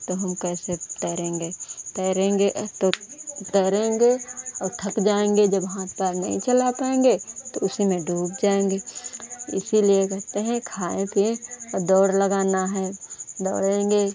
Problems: none marked